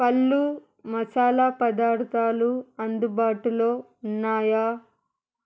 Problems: constant background noise